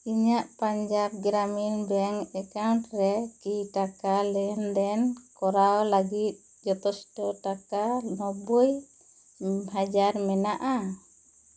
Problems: none marked